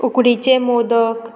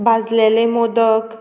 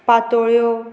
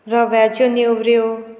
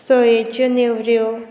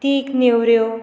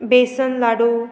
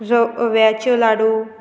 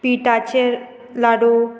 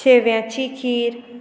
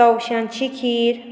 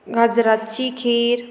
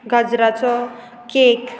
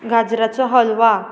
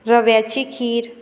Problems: constant background noise